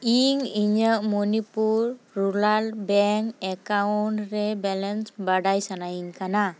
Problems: background sounds at intervals